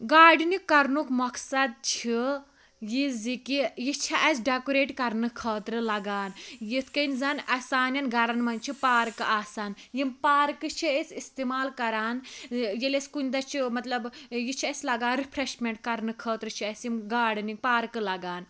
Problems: none marked